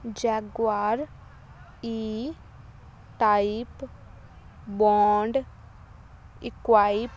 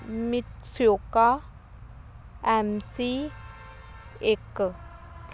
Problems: background sounds at intervals